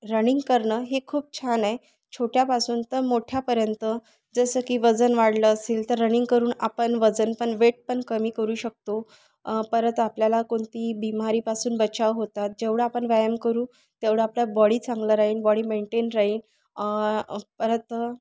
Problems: background sounds at intervals